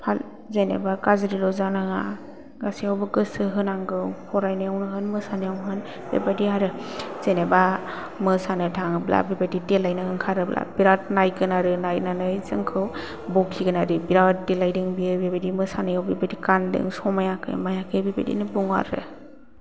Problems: low volume